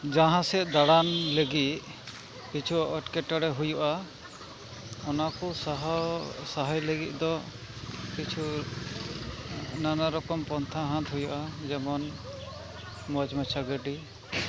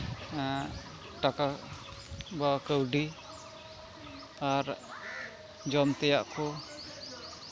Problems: constant background noise, background conversations at intervals